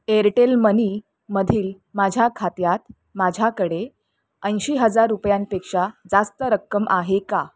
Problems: none marked